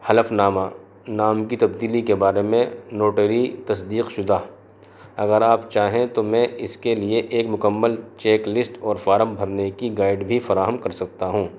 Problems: constant background noise